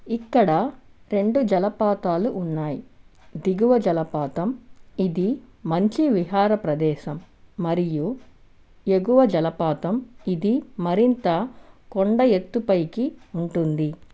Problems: background sounds at intervals